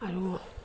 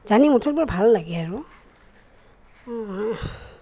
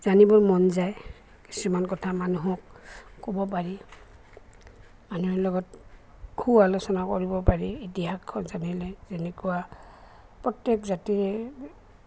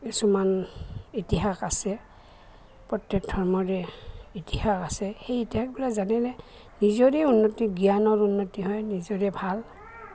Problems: constant background noise, background conversations at intervals